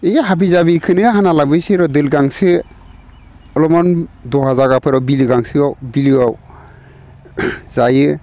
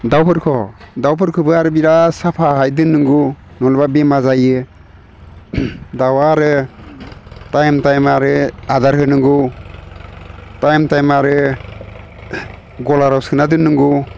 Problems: none marked